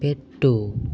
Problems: none marked